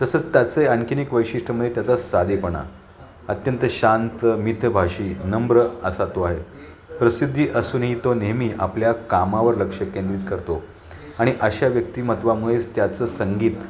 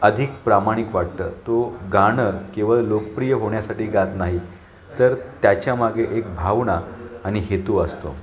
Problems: none marked